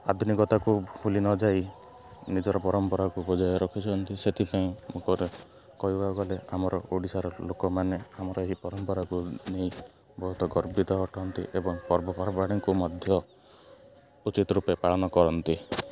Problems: constant background noise